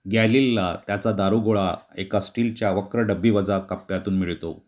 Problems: constant background noise